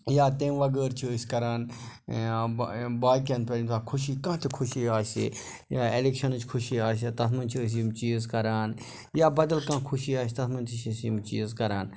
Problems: background sounds at intervals